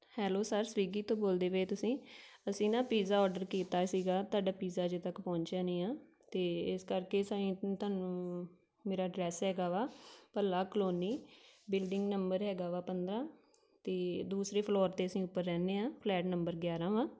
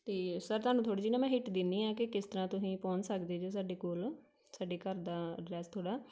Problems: none marked